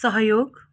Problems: none marked